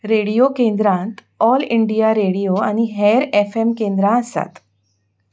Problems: background sounds at intervals